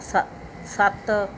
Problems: background sounds at intervals